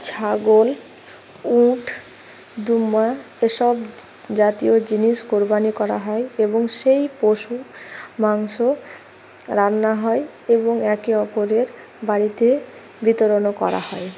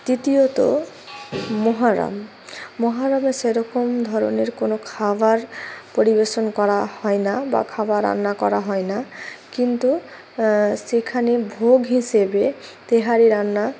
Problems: constant background noise